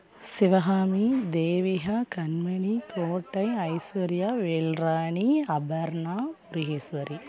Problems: background conversations at intervals